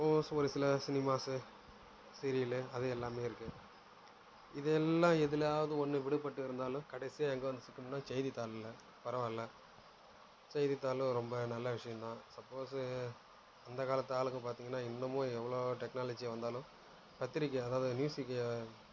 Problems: low volume